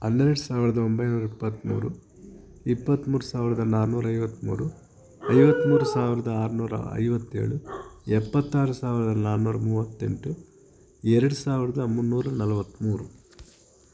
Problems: background sounds at intervals